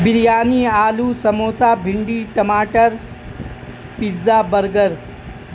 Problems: constant background noise